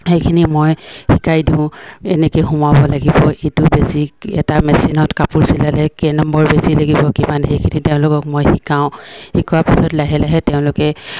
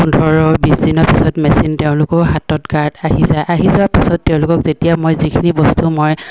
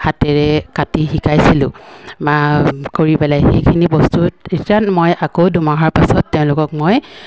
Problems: none marked